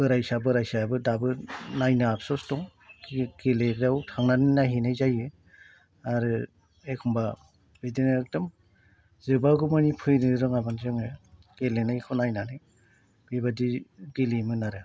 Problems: none marked